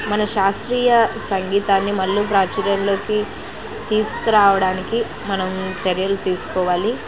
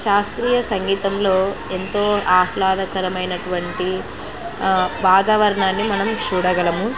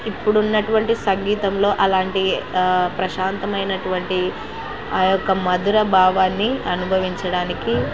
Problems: constant background noise